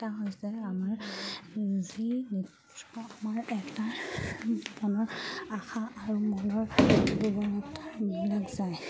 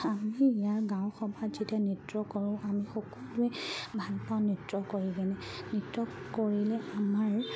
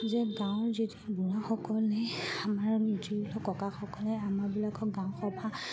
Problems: background sounds at intervals